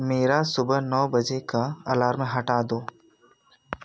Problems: none marked